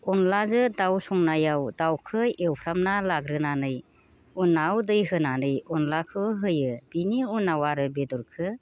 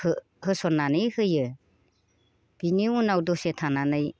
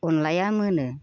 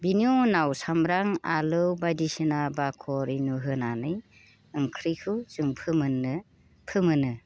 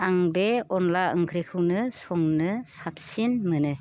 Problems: constant background noise